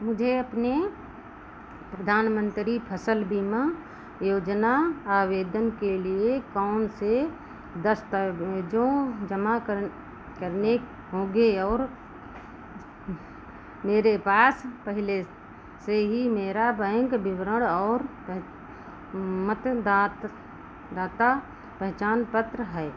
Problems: constant background noise